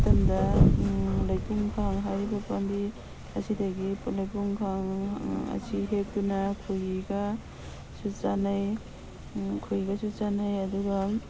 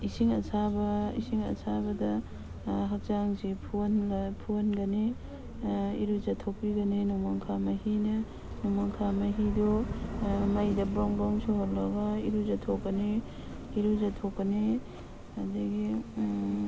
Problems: background sounds at intervals, background conversations at intervals